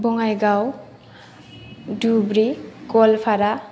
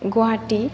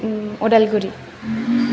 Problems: background sounds at intervals